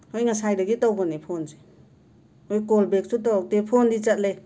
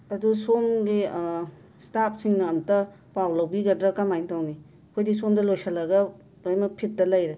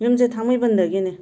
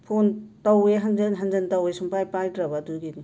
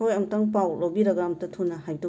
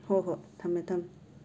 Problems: constant background noise